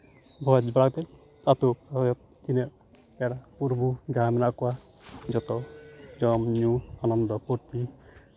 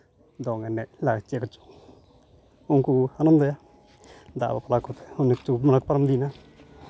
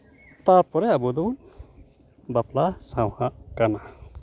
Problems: none marked